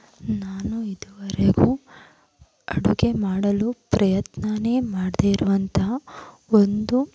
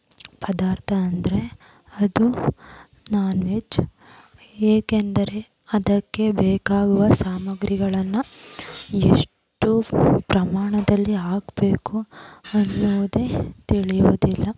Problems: constant background noise